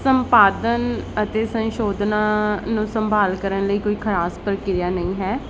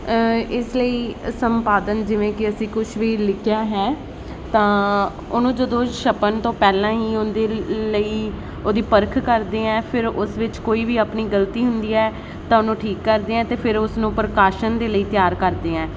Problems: constant background noise